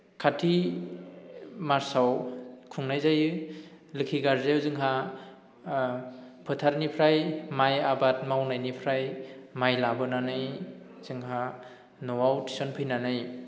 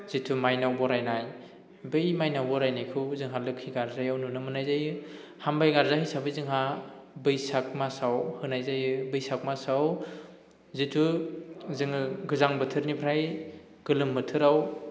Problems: none marked